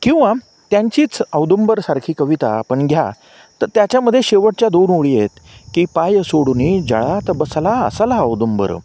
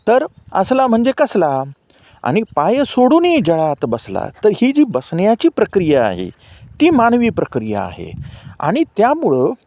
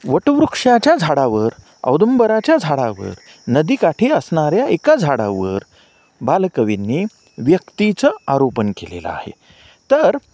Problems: none marked